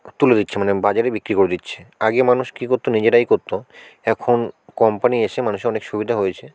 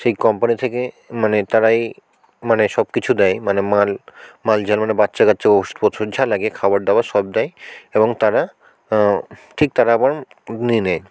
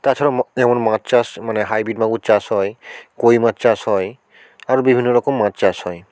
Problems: constant background noise, background conversations at intervals